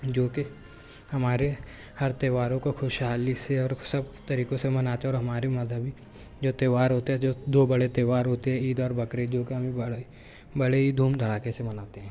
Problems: none marked